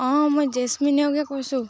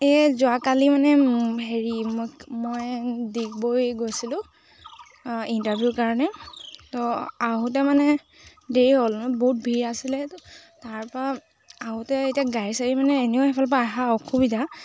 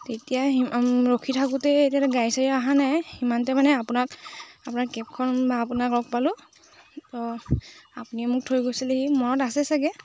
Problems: constant background noise